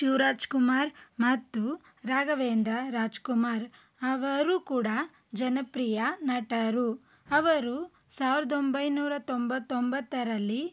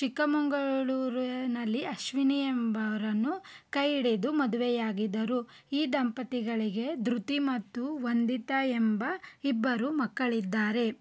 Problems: none marked